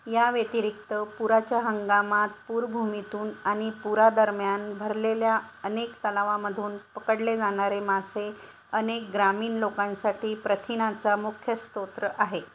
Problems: none marked